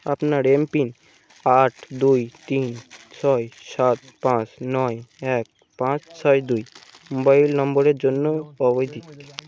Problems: constant background noise, background conversations at intervals